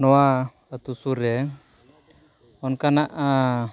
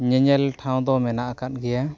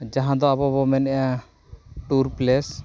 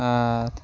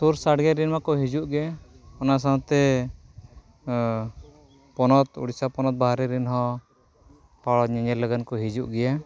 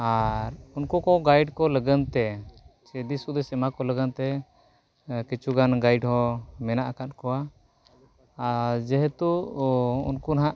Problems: none marked